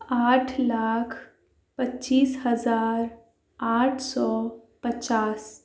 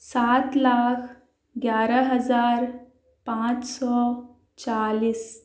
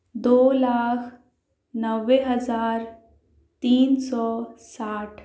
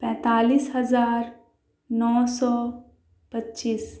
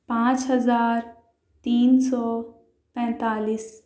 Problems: constant background noise